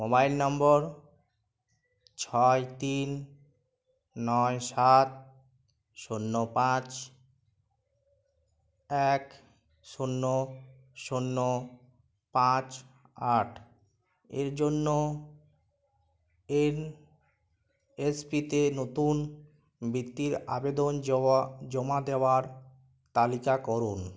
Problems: none marked